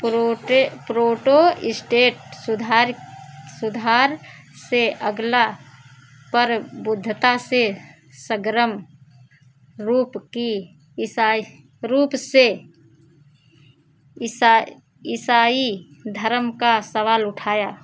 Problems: background sounds at intervals